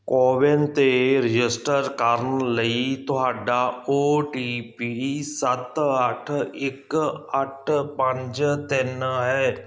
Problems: none marked